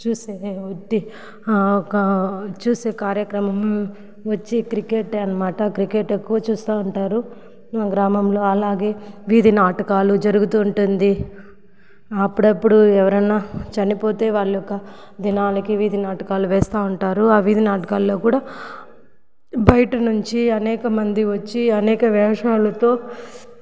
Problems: none marked